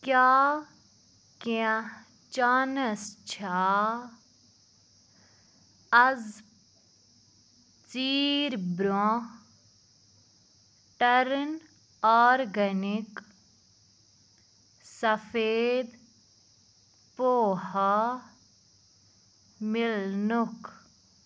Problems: background sounds at intervals